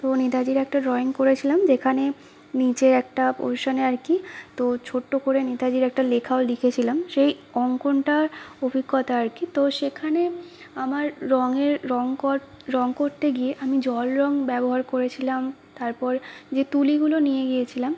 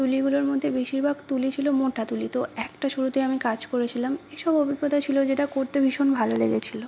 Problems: constant background noise, background conversations at intervals